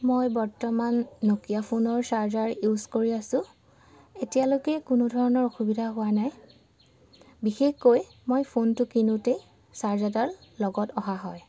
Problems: none marked